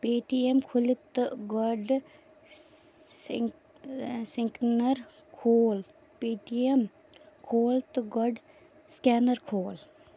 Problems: low volume